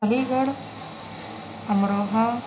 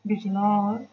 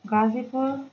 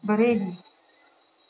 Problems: background sounds at intervals